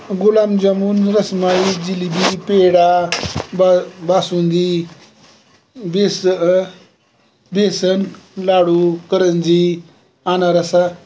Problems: constant background noise